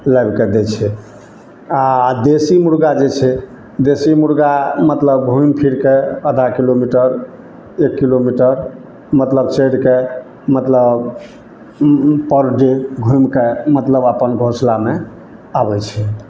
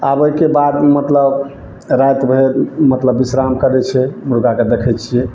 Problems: none marked